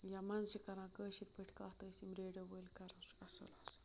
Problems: constant background noise, low volume